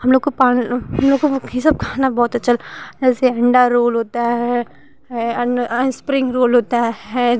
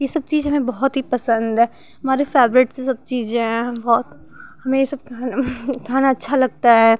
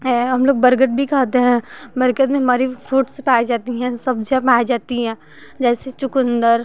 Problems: none marked